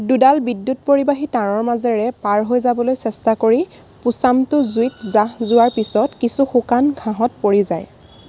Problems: constant background noise